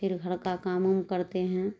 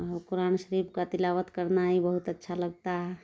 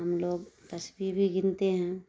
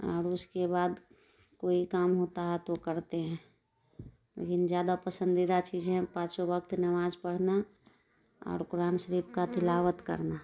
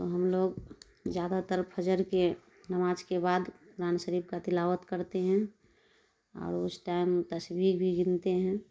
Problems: none marked